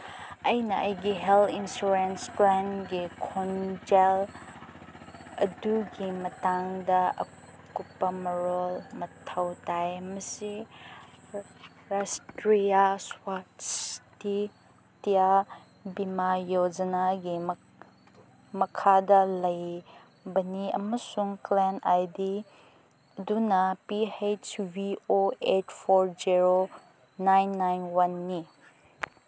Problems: background sounds at intervals